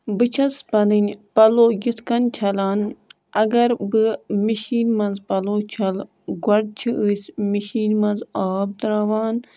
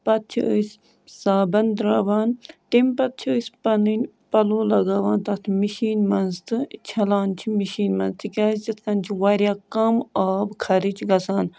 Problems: background sounds at intervals